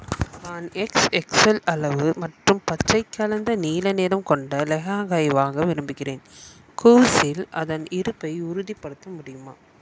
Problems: background sounds at intervals